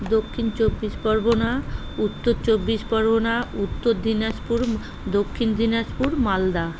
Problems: constant background noise